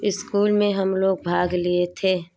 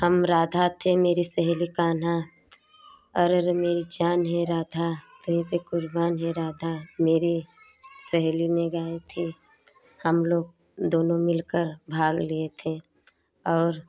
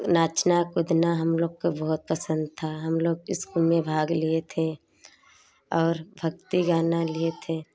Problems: background sounds at intervals, background conversations at intervals